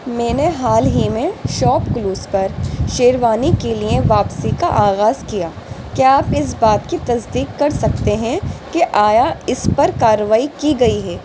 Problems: constant background noise